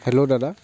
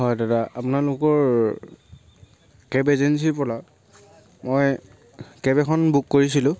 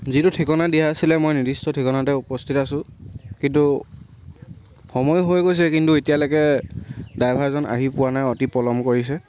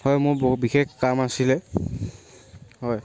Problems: background sounds at intervals